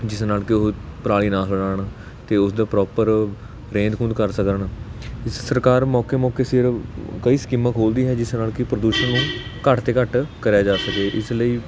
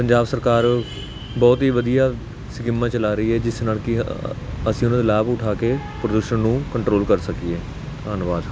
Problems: constant background noise